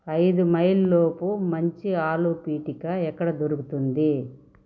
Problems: none marked